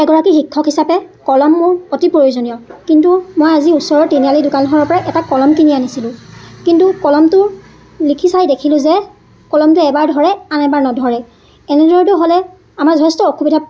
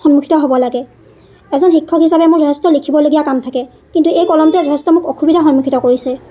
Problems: constant background noise